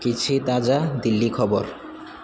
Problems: constant background noise